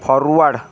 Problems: constant background noise